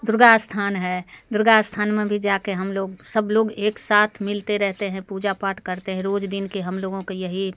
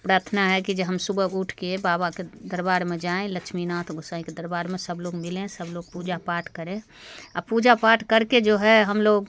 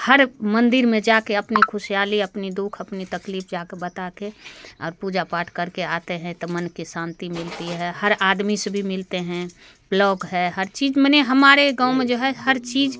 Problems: background sounds at intervals